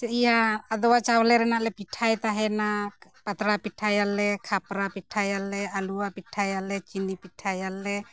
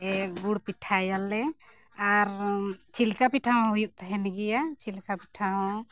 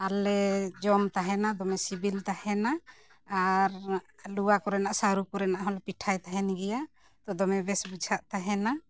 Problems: background sounds at intervals